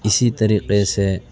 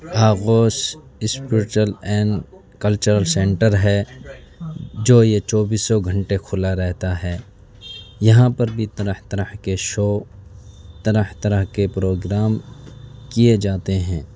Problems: background sounds at intervals, low volume